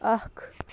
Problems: none marked